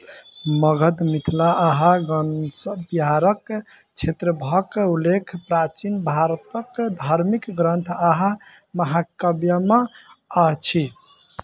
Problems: background sounds at intervals